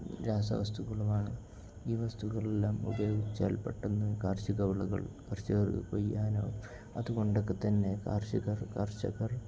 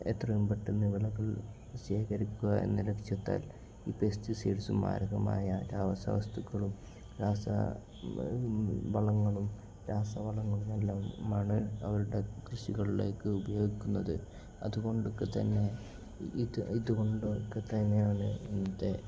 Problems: low volume